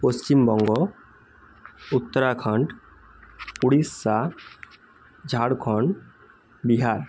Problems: constant background noise